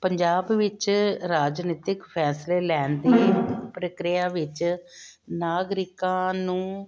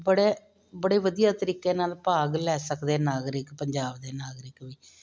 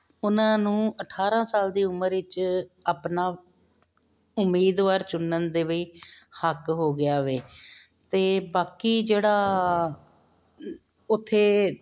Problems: none marked